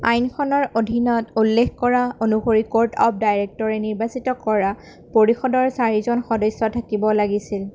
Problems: none marked